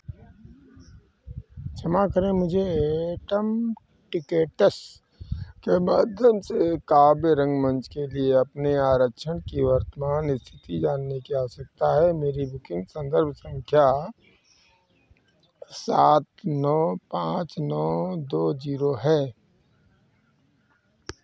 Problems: background sounds at intervals